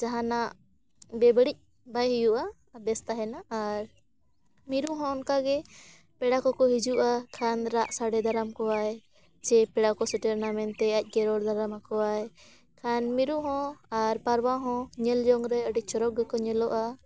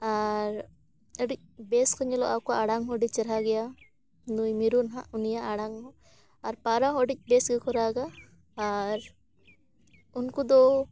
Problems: background sounds at intervals